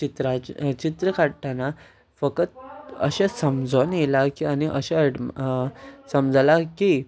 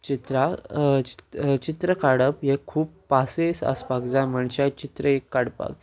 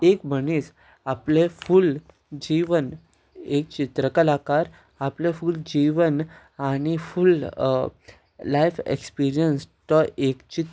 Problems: background conversations at intervals